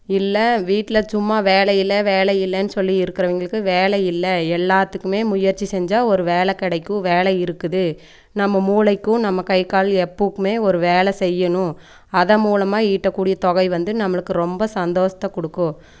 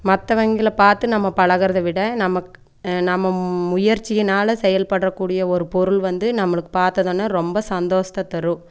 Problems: none marked